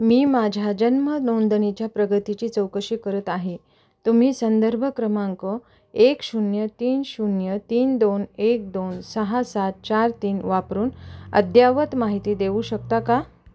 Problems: none marked